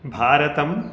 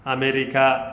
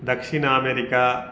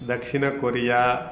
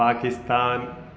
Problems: constant background noise